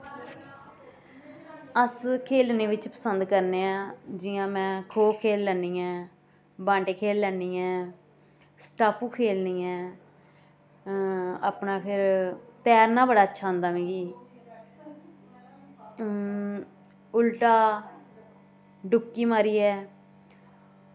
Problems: constant background noise